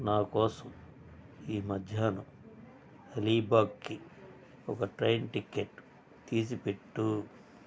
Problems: constant background noise